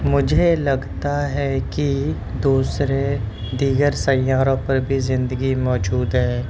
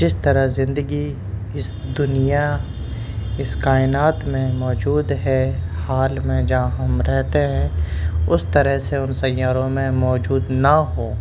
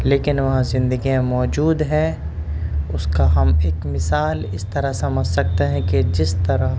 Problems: constant background noise